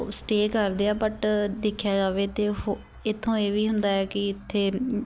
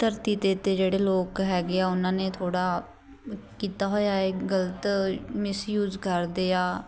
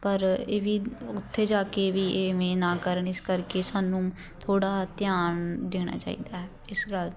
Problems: background conversations at intervals